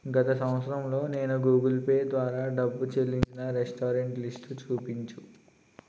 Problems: constant background noise